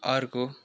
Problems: low volume